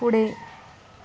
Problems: none marked